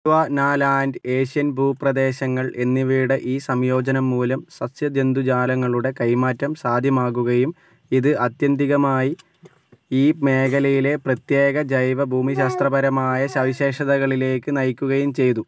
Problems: background sounds at intervals